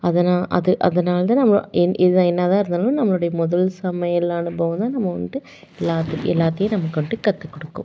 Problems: none marked